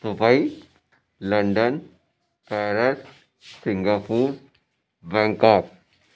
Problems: none marked